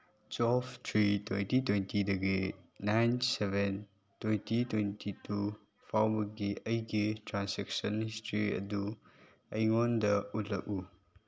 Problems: none marked